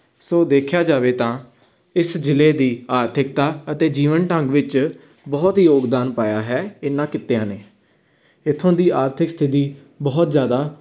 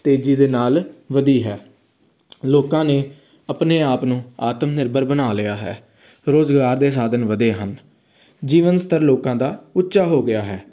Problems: background sounds at intervals